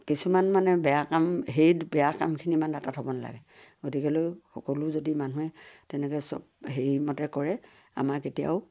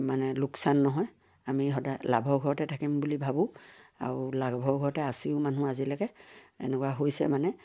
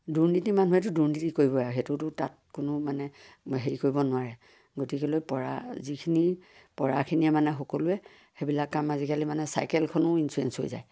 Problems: none marked